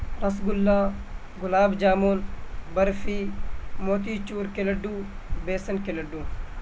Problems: constant background noise